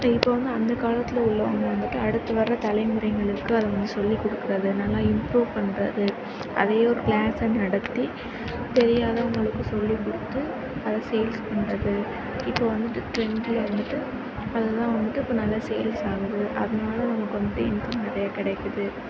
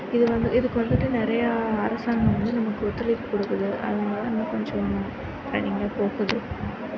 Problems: background sounds at intervals